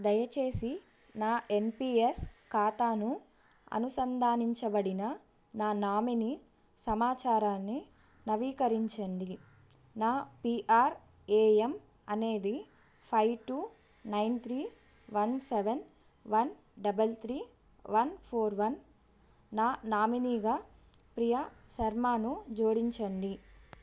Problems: background sounds at intervals